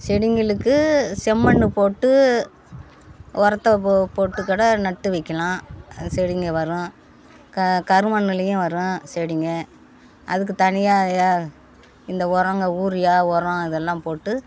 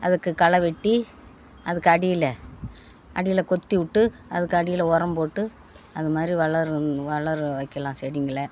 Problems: none marked